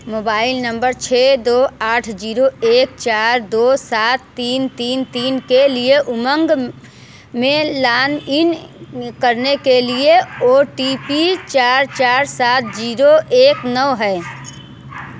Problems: constant background noise